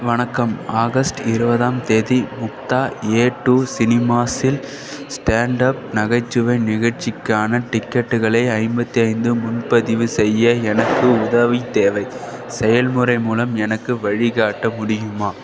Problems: constant background noise